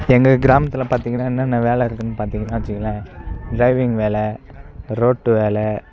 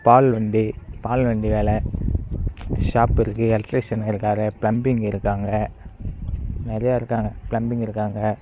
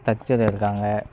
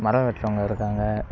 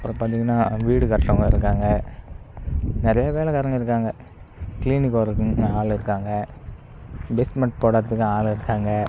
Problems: none marked